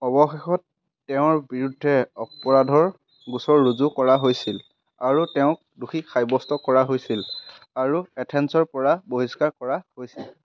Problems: constant background noise, background conversations at intervals